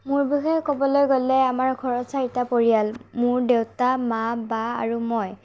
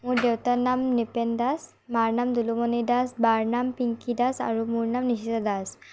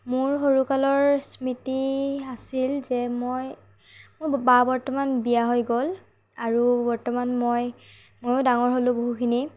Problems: background sounds at intervals, low volume